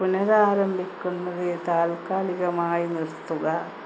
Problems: constant background noise, low volume